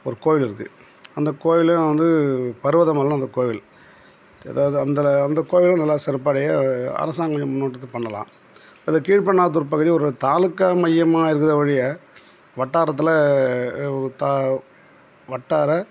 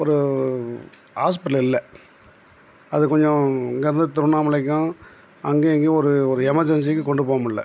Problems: none marked